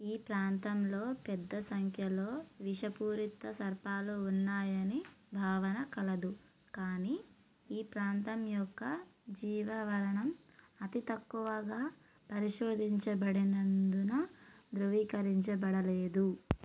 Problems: low volume